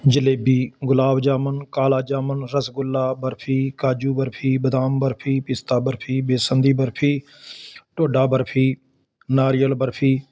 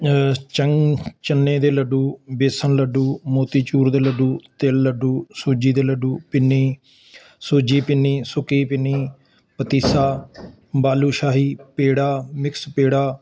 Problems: constant background noise